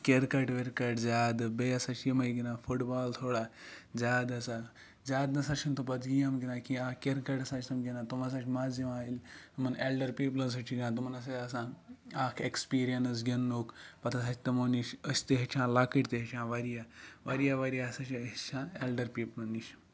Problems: none marked